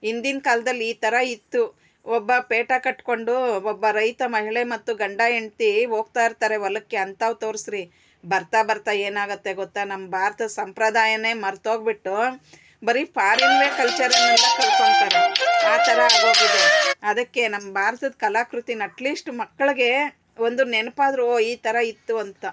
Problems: constant background noise